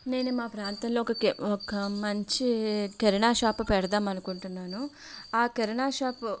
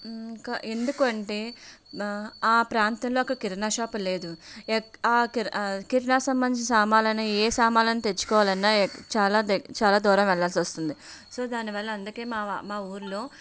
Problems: none marked